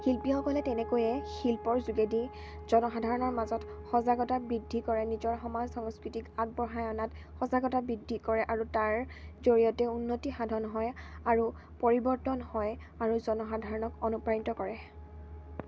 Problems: none marked